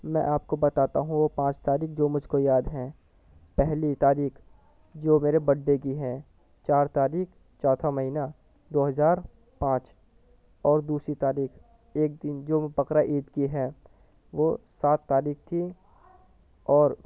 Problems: constant background noise, low volume